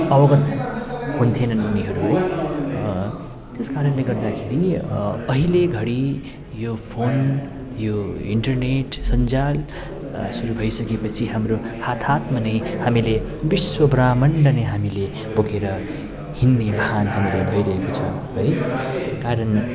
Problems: background sounds at intervals